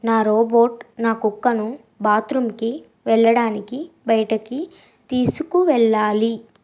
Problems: constant background noise